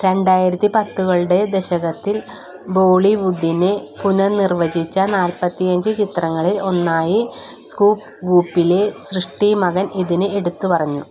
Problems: none marked